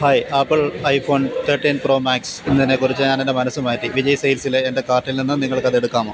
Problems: constant background noise